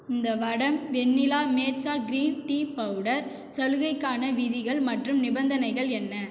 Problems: echo